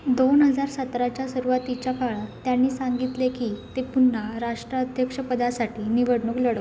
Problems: none marked